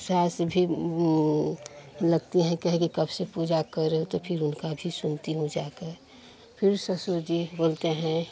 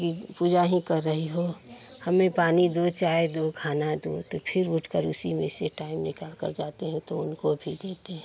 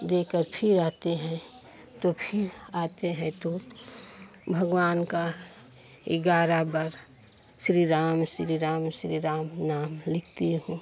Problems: constant background noise, continuous background conversations